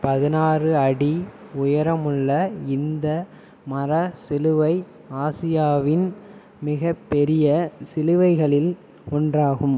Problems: constant background noise